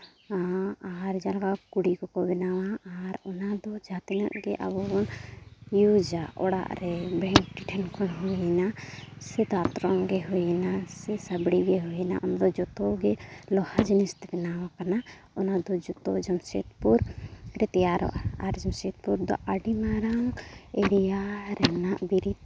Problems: background sounds at intervals